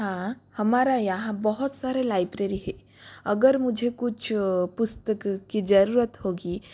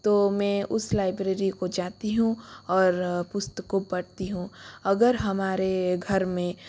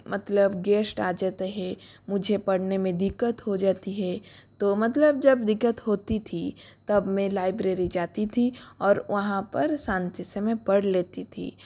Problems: constant background noise